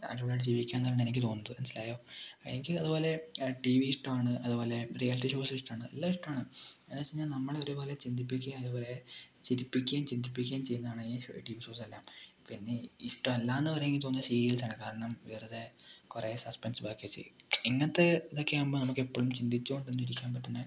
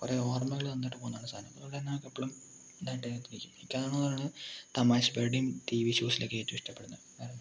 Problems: low volume